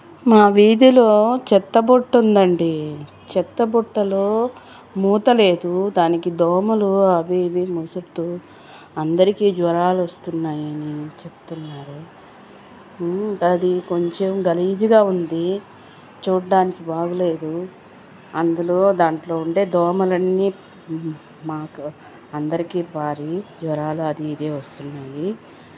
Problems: constant background noise